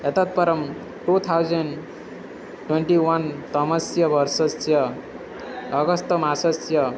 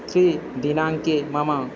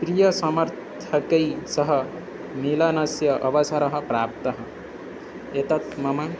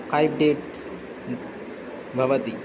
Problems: none marked